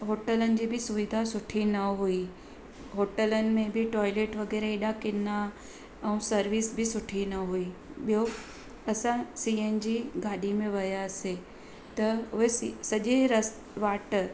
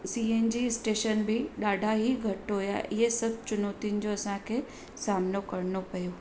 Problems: constant background noise